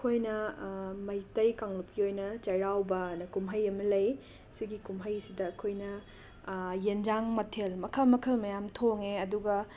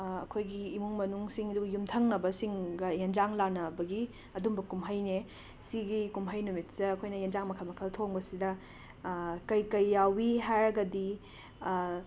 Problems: constant background noise